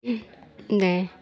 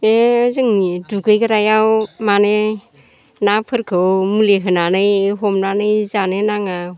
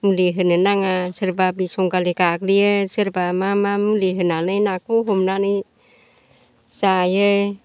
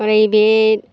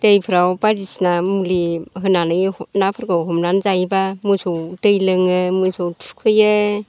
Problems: constant background noise